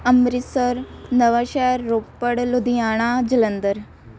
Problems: none marked